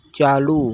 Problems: background sounds at intervals